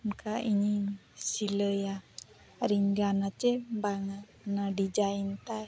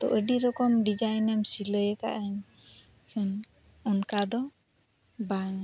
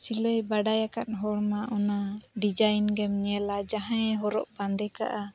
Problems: none marked